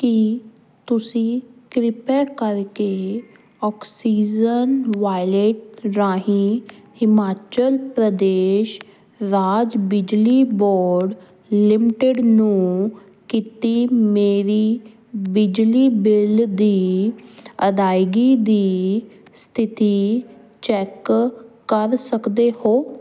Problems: background sounds at intervals